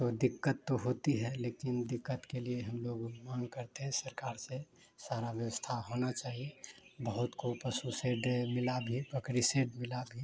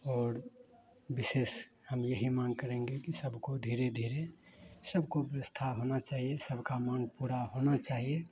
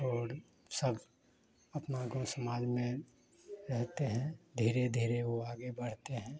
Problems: none marked